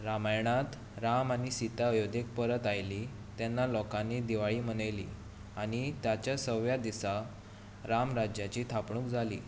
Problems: constant background noise